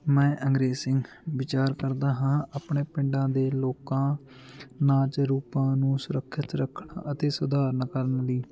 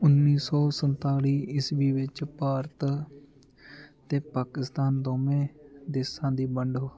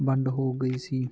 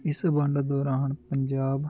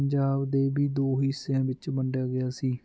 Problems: constant background noise